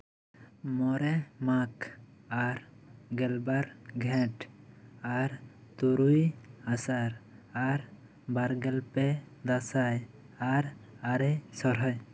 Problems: none marked